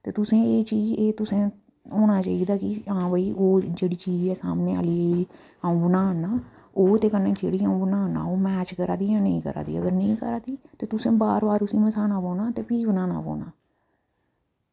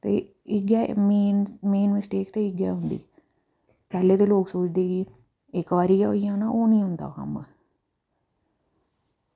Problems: low volume